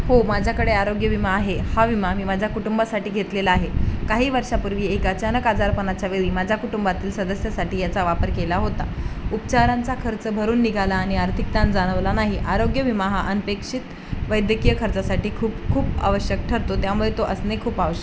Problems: constant background noise